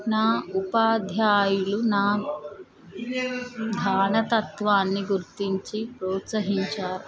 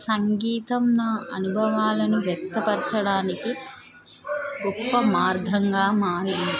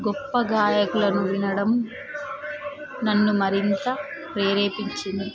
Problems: continuous background conversations